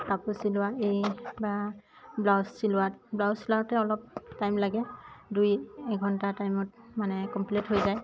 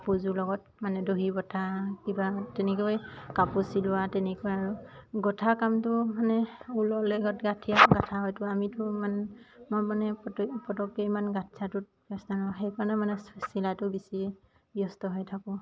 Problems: constant background noise